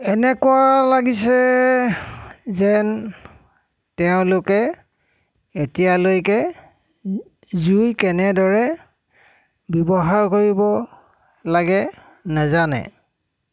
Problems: none marked